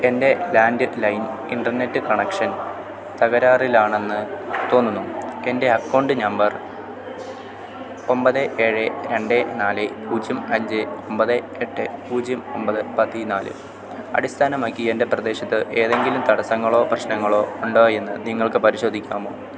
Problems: constant background noise